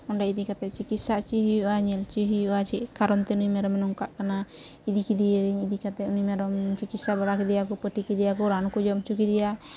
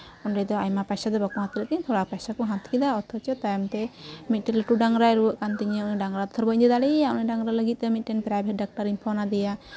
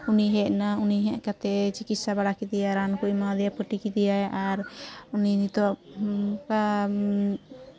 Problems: constant background noise